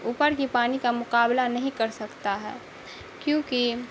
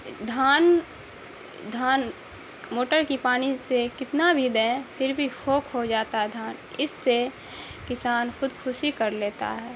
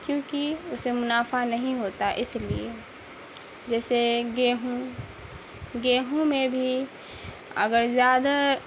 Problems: constant background noise